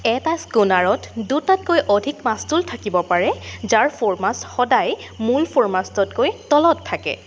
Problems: constant background noise